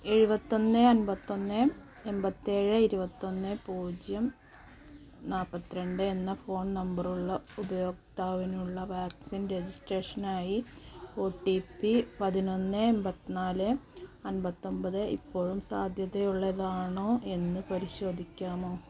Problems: low volume